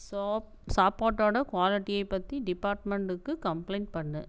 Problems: constant background noise